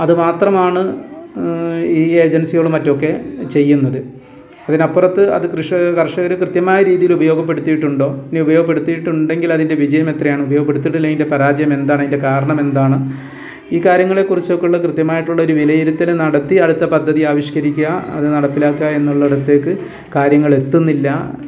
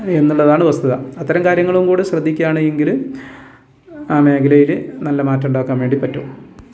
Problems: none marked